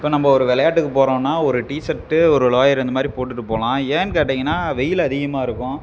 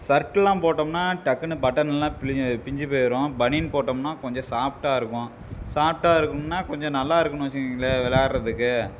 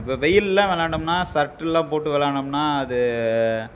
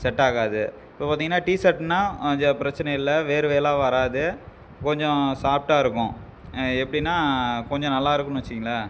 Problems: background sounds at intervals